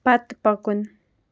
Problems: none marked